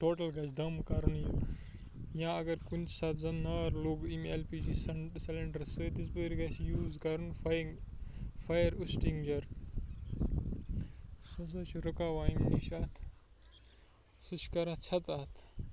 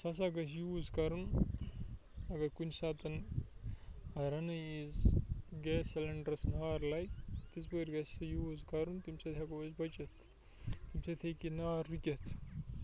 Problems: constant background noise, low volume